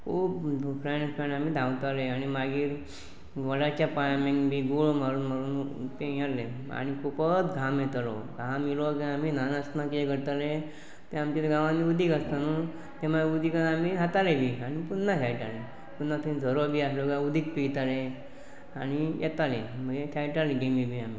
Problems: constant background noise, continuous background conversations